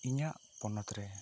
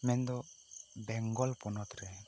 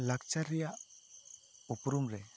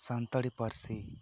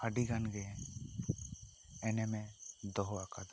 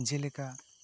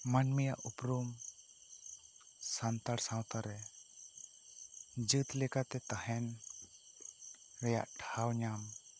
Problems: none marked